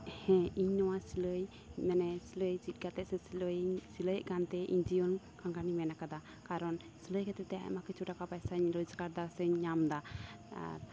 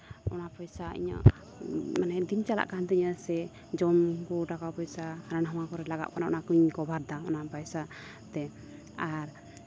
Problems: background sounds at intervals